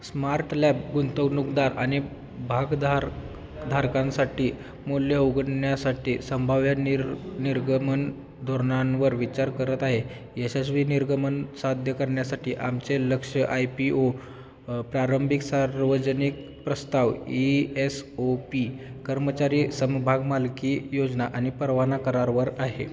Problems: constant background noise, continuous background conversations